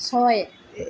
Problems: none marked